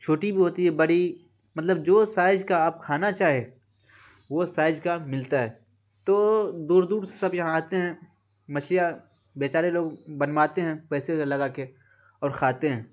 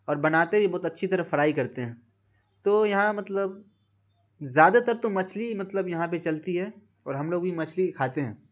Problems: constant background noise